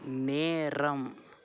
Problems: none marked